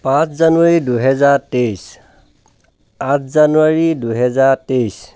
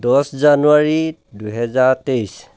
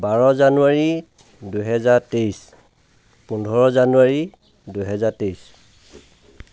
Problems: none marked